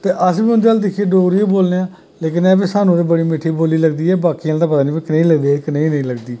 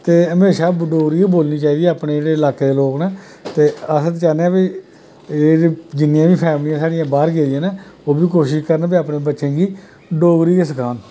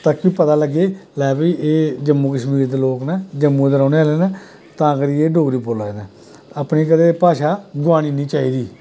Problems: constant background noise